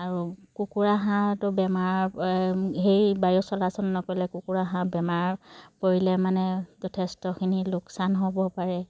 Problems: background sounds at intervals